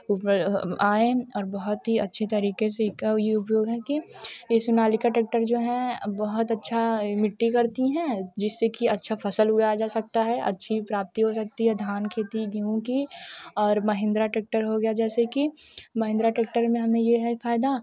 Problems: constant background noise, continuous background conversations